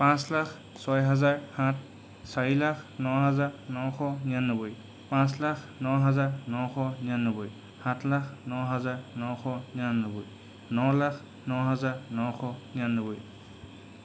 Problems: constant background noise